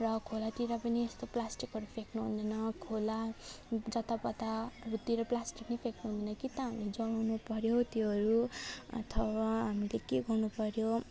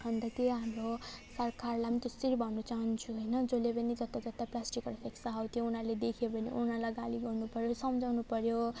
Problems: none marked